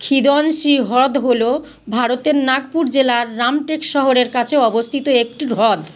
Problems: background sounds at intervals